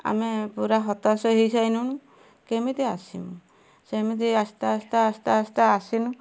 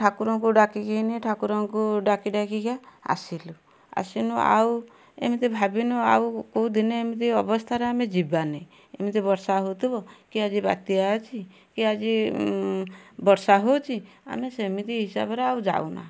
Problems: none marked